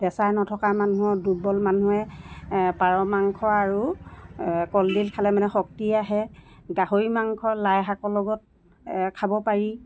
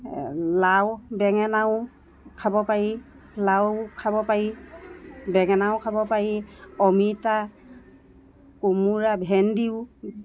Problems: constant background noise